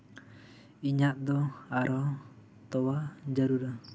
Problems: background conversations at intervals